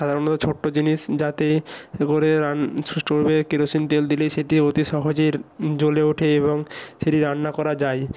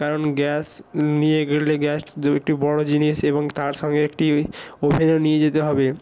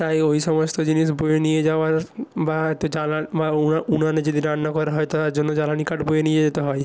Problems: constant background noise